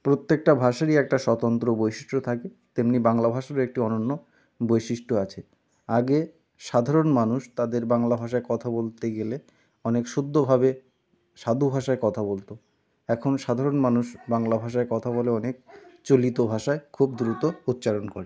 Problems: none marked